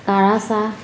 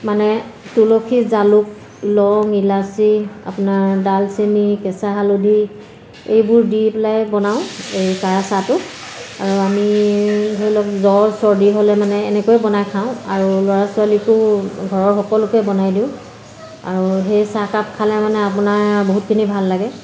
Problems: none marked